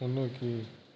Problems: low volume